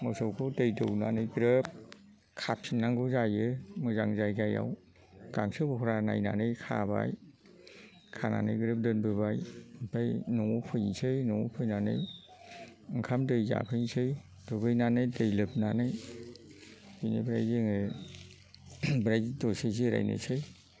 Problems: constant background noise